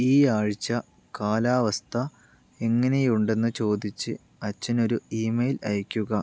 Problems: none marked